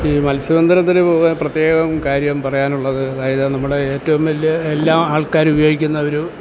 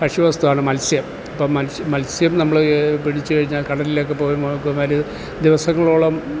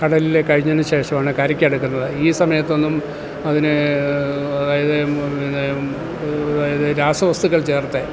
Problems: constant background noise